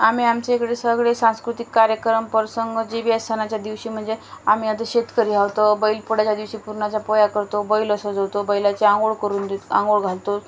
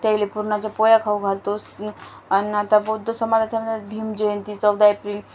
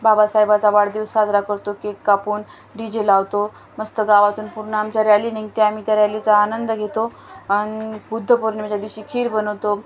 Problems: none marked